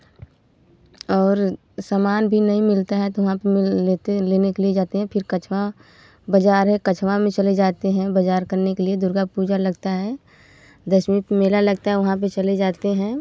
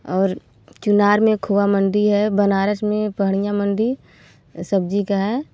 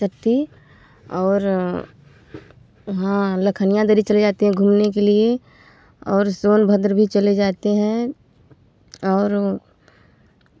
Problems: none marked